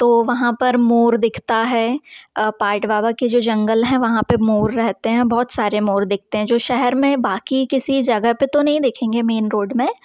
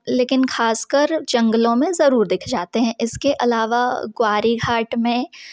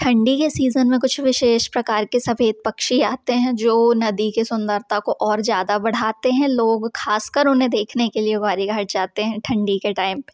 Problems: background sounds at intervals